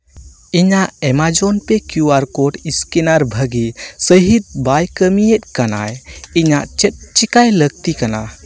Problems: constant background noise